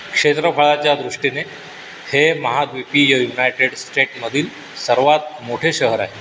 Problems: constant background noise